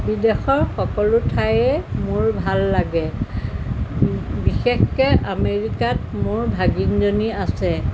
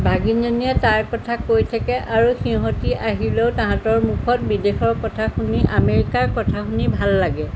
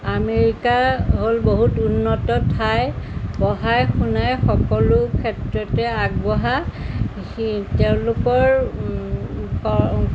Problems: constant background noise